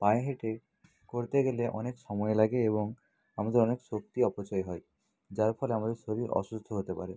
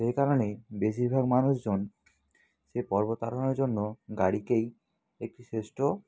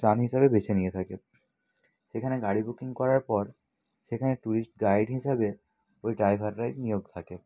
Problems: none marked